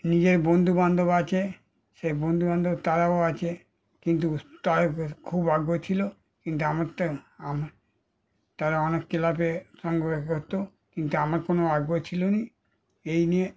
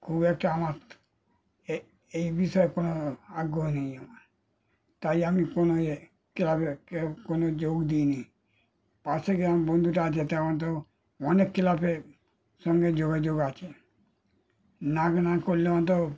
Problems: background sounds at intervals